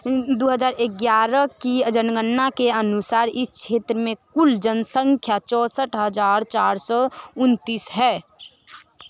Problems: constant background noise